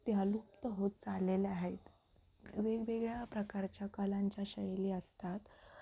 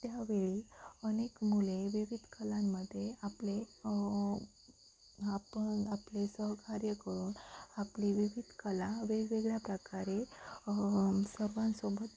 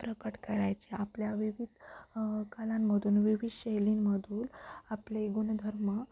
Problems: constant background noise